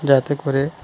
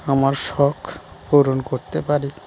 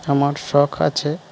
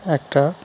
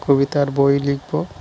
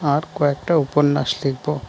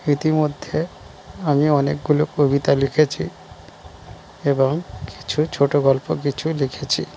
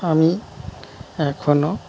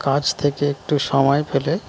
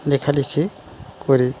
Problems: constant background noise